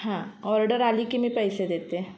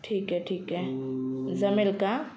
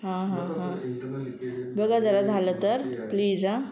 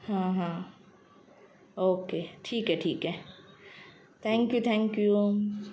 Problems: constant background noise, continuous background conversations